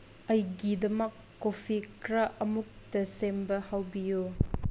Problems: constant background noise